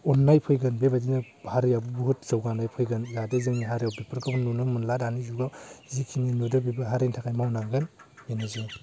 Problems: low volume